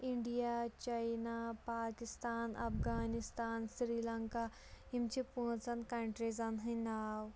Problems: background sounds at intervals